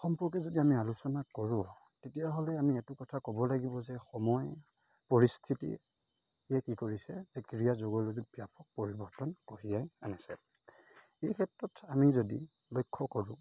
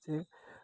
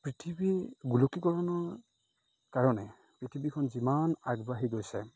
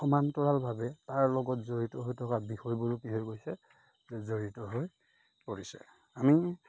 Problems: none marked